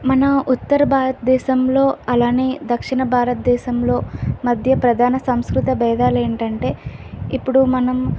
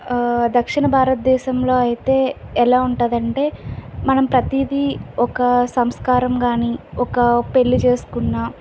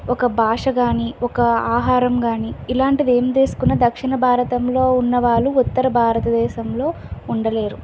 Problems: constant background noise